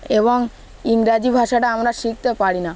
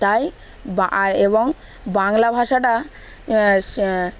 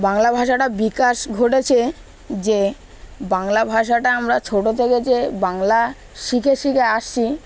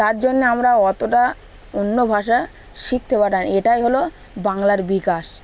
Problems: none marked